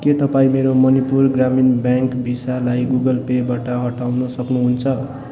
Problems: continuous background conversations